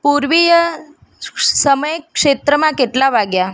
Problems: constant background noise